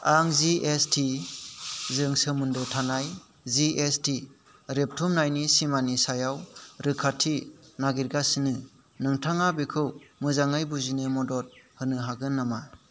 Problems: none marked